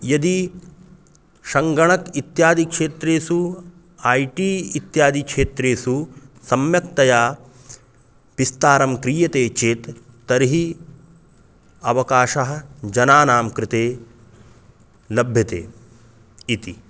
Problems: none marked